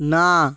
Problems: constant background noise